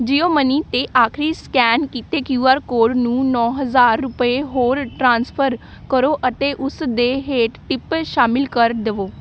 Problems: background sounds at intervals